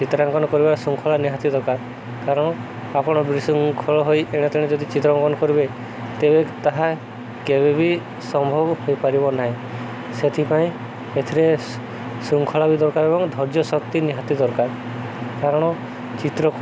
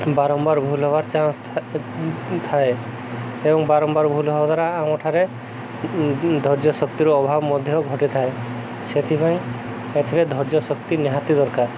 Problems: none marked